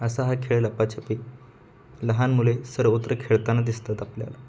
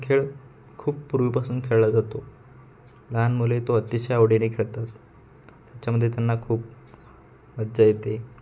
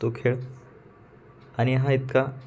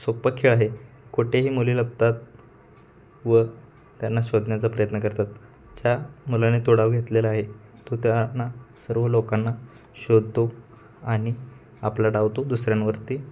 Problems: none marked